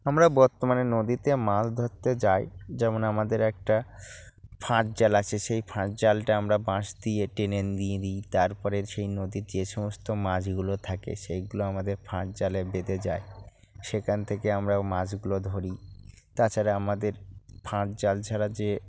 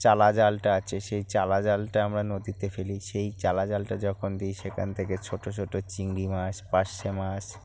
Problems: background sounds at intervals